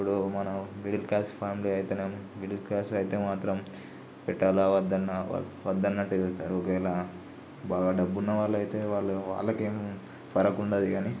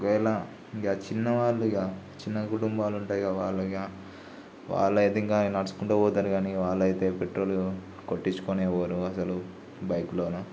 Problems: low volume